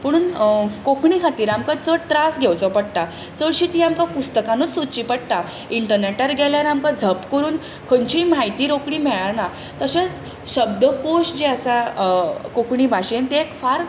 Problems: constant background noise